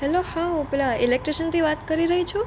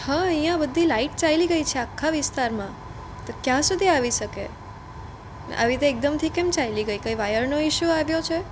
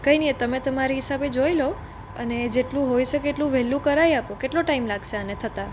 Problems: none marked